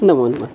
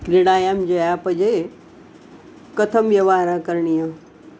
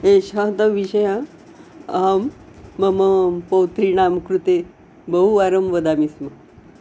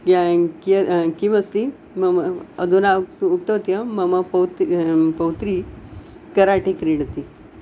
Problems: constant background noise